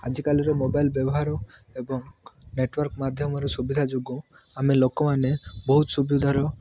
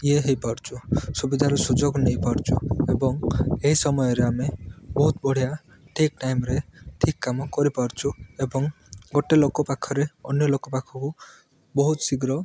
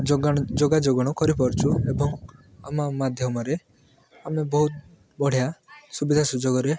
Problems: none marked